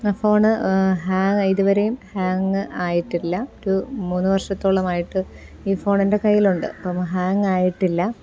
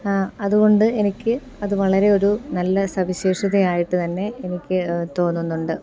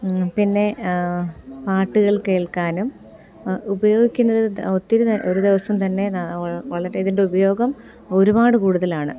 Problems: none marked